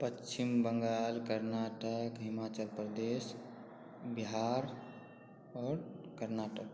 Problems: low volume